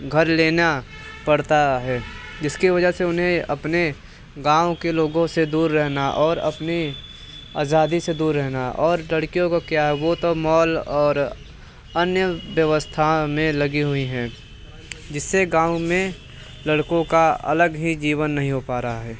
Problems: none marked